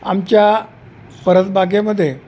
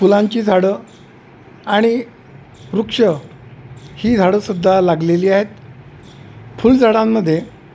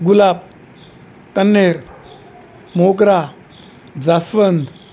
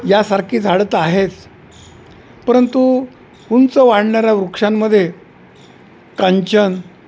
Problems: none marked